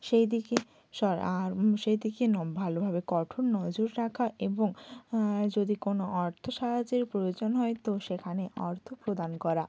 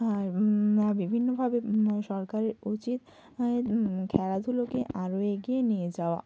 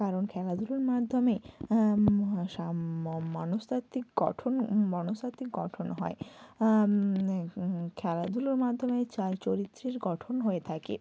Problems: constant background noise, low volume